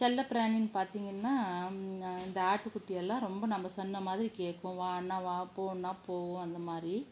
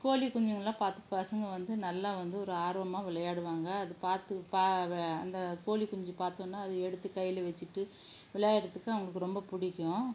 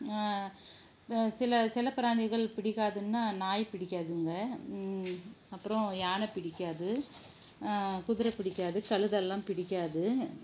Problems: low volume